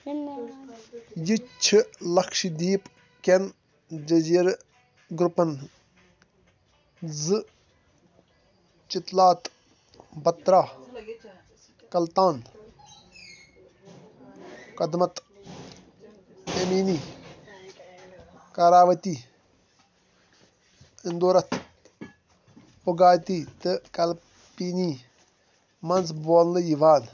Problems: background sounds at intervals, background conversations at intervals